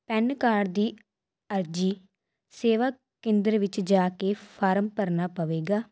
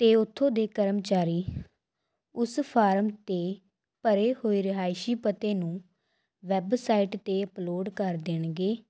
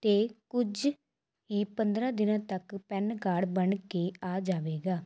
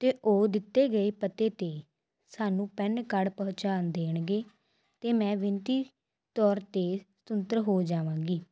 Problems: background sounds at intervals